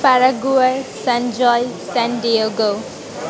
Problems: constant background noise